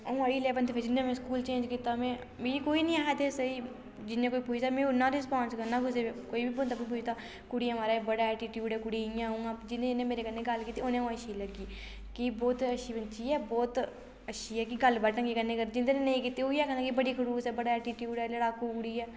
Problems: low volume